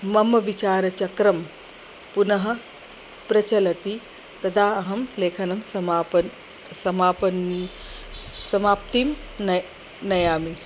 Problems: constant background noise